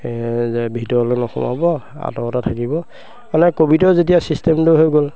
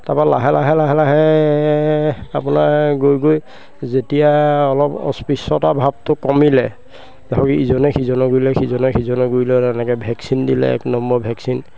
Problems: constant background noise, background conversations at intervals